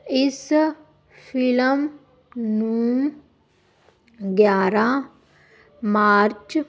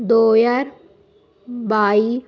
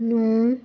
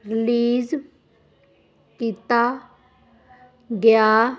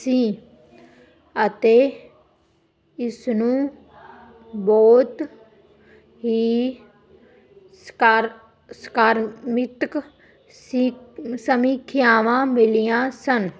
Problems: constant background noise